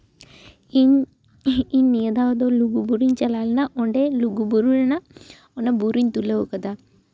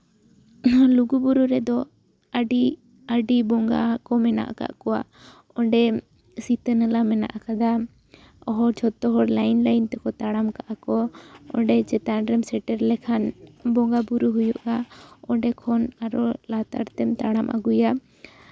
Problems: background conversations at intervals